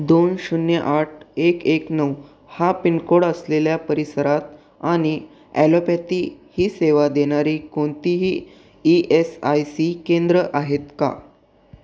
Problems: none marked